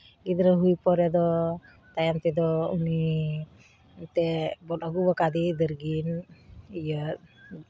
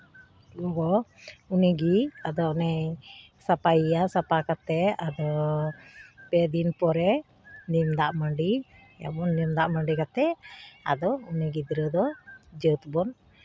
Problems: constant background noise, background conversations at intervals